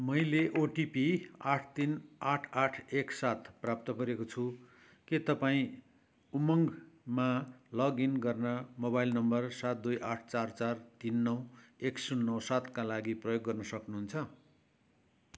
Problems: none marked